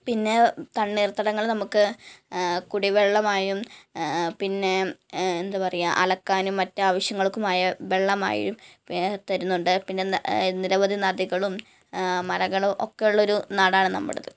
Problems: none marked